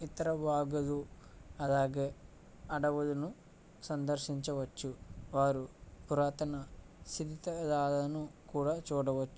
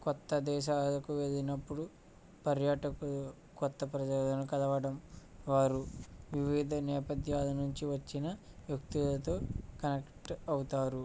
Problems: low volume